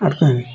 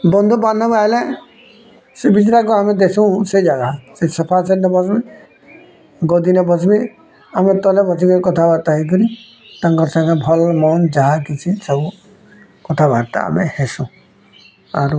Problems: none marked